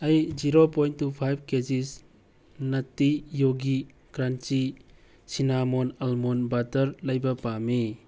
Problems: background sounds at intervals